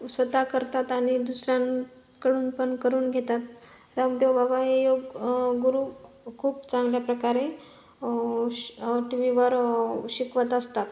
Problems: background sounds at intervals